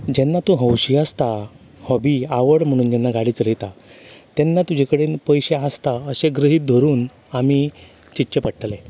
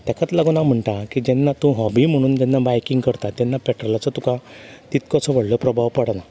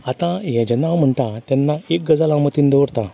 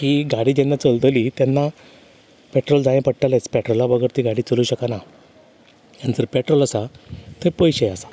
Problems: constant background noise